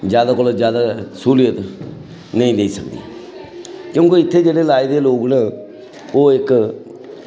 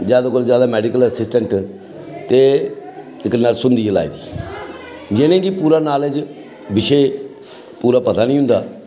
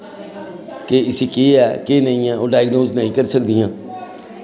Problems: constant background noise